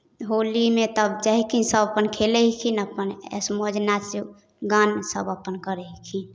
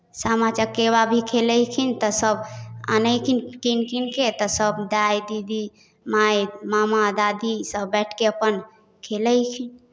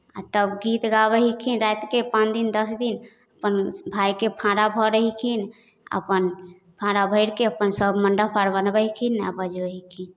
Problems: none marked